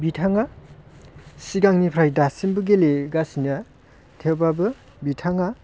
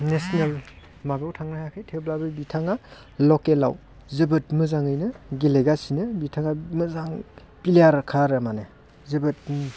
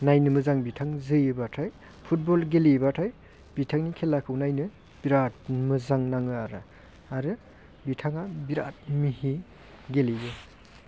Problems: constant background noise